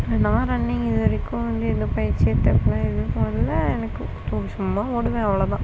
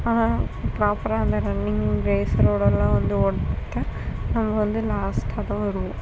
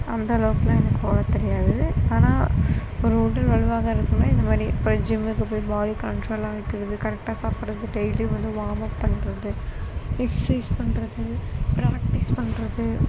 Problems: constant background noise